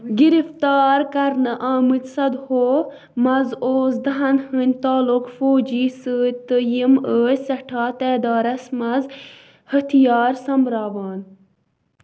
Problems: constant background noise, continuous background conversations